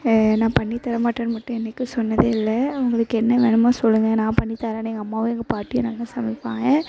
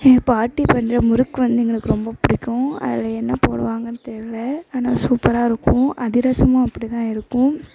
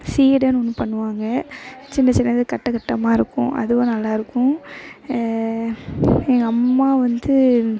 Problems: constant background noise, background conversations at intervals